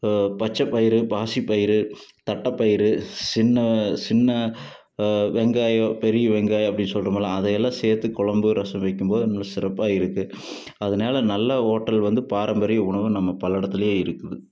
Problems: background sounds at intervals